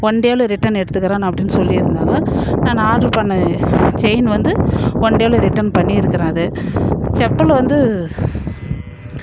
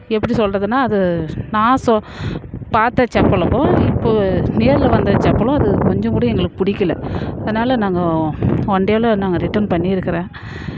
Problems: background sounds at intervals